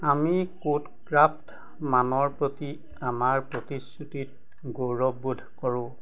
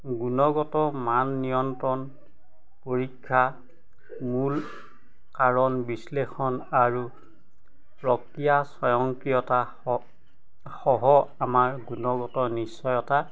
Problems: constant background noise, background conversations at intervals